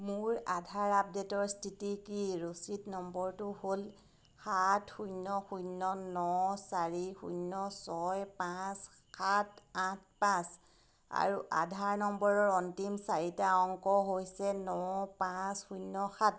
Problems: none marked